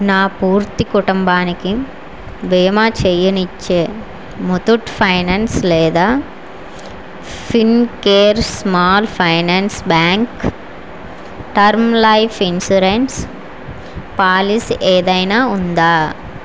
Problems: constant background noise